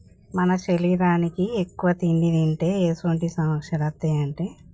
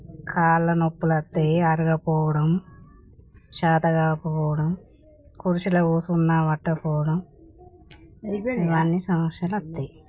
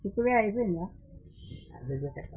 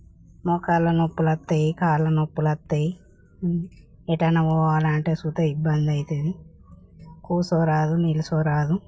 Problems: none marked